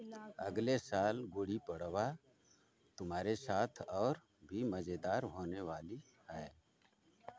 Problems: constant background noise